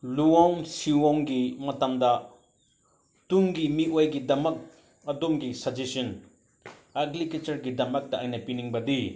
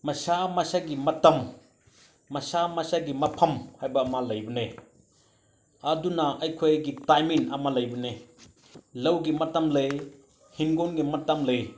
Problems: none marked